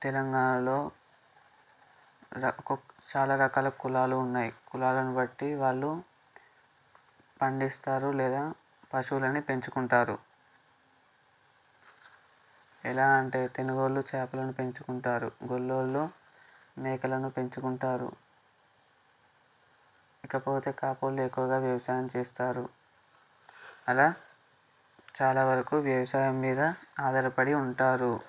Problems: background sounds at intervals